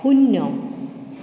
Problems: background sounds at intervals